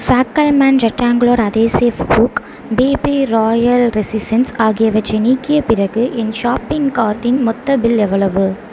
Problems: constant background noise